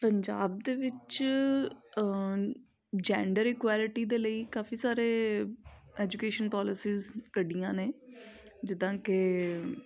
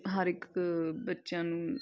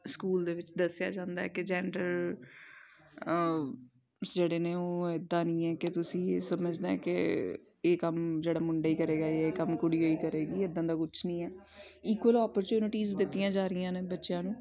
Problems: continuous background conversations